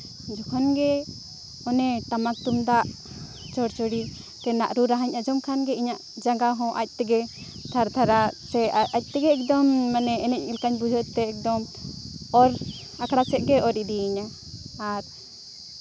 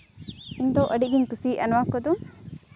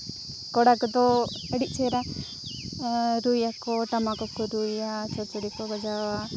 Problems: none marked